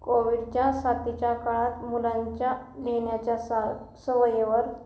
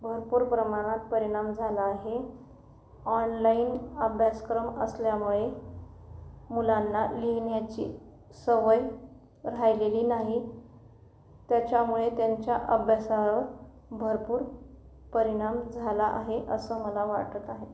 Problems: none marked